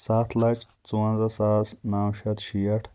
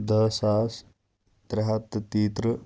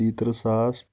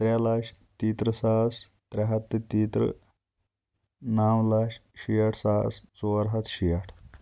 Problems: constant background noise